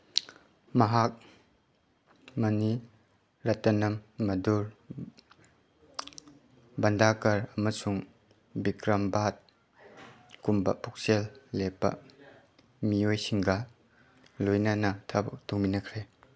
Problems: background sounds at intervals